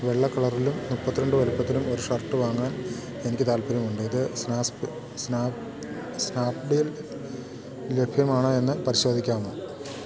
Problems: constant background noise